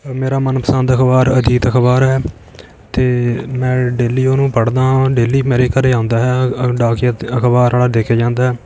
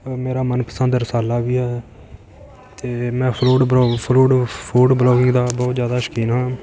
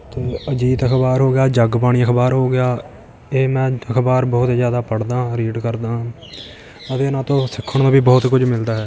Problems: continuous background conversations